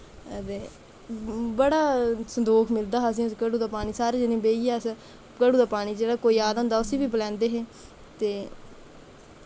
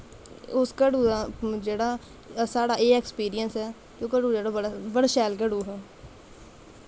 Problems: constant background noise